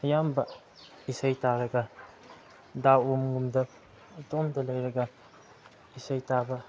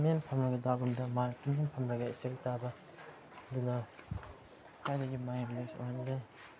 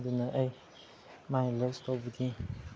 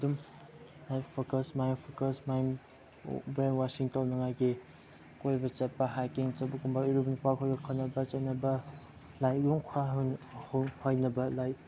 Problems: low volume